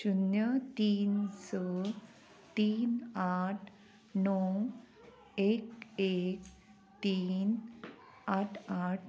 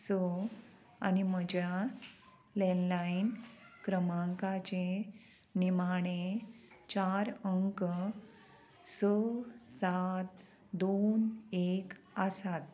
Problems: constant background noise